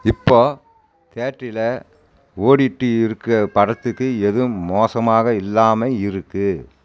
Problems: continuous background conversations